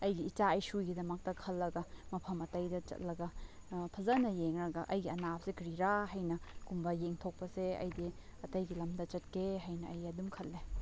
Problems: none marked